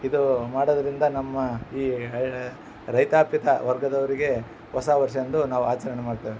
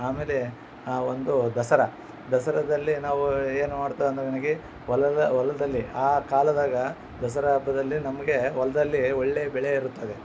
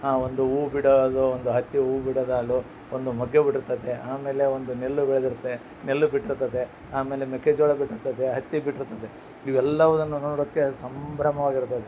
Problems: none marked